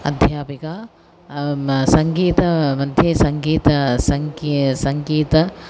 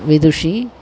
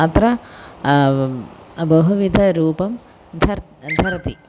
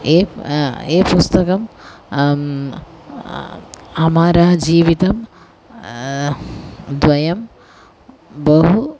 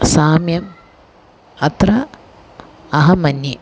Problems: constant background noise